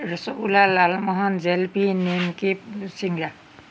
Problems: constant background noise